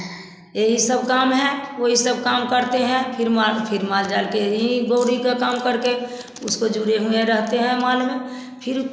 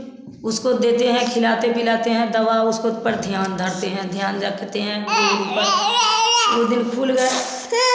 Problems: none marked